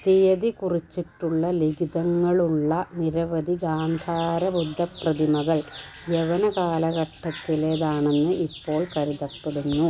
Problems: background sounds at intervals